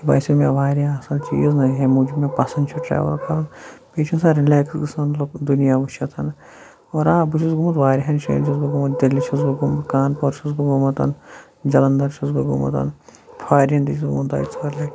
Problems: constant background noise